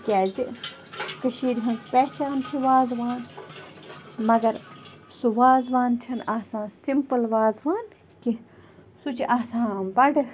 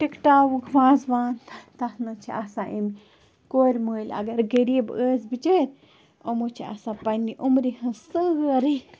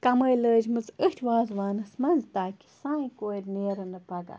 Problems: constant background noise